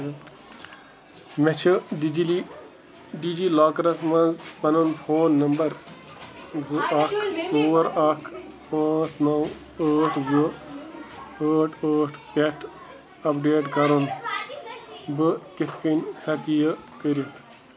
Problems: constant background noise